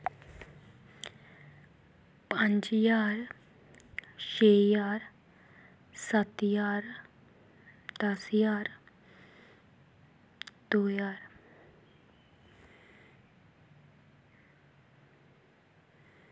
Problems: constant background noise